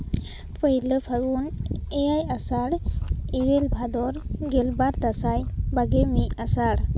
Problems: constant background noise